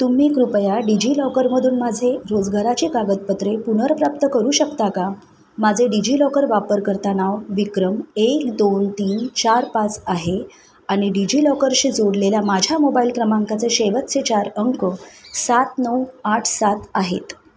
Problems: none marked